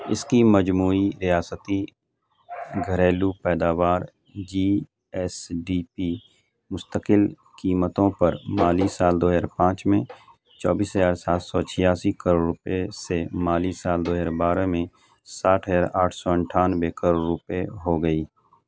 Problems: none marked